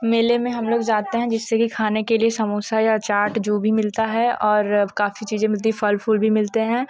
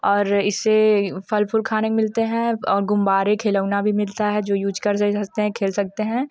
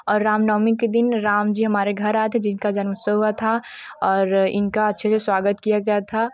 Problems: none marked